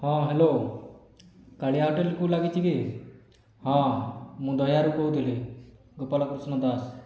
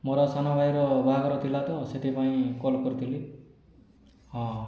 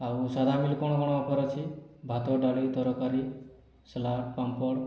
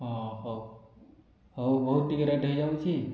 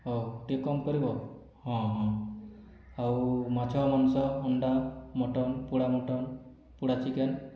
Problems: low volume